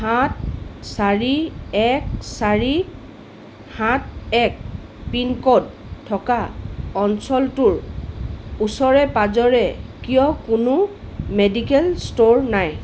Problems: background sounds at intervals